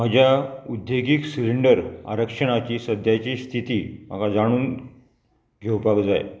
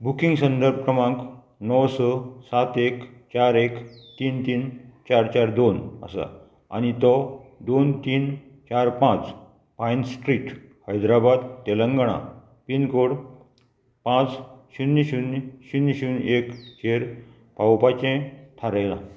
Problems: none marked